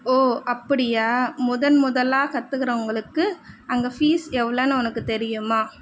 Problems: none marked